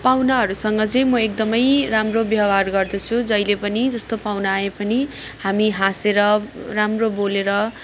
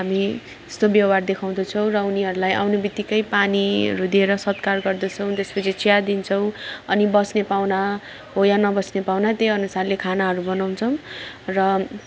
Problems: constant background noise